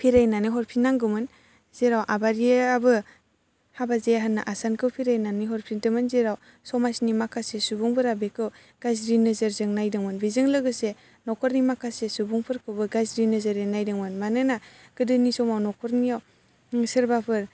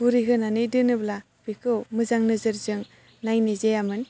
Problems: constant background noise